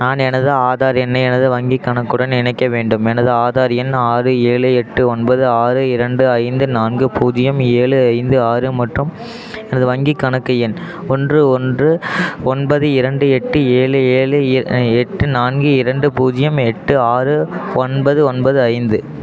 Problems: none marked